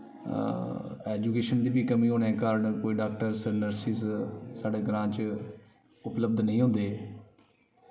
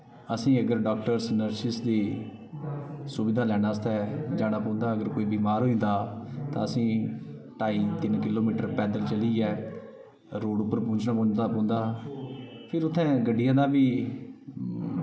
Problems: none marked